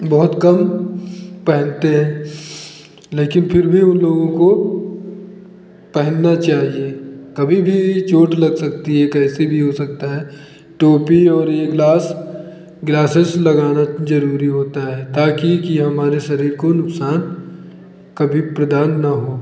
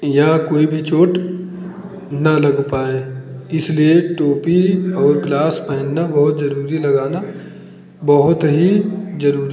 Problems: none marked